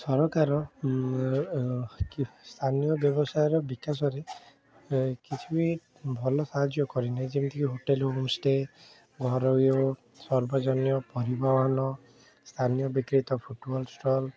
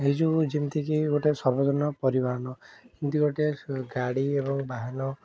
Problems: background sounds at intervals, continuous background conversations